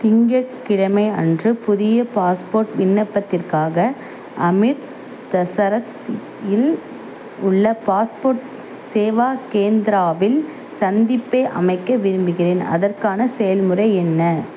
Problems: constant background noise